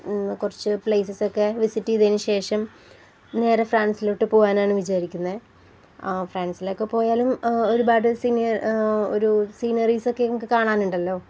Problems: none marked